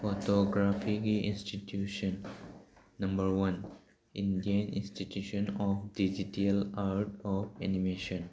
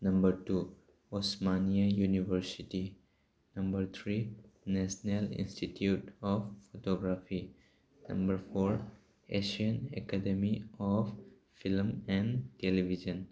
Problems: none marked